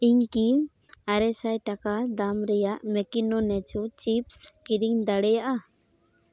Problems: none marked